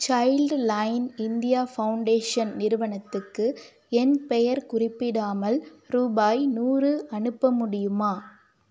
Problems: none marked